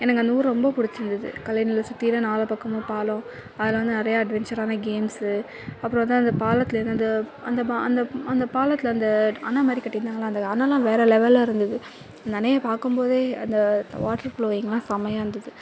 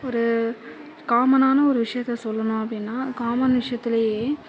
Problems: constant background noise, low volume